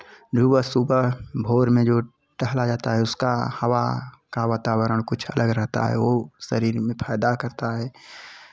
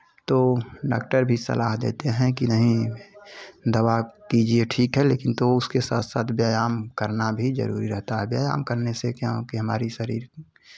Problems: none marked